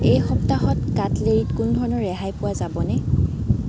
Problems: constant background noise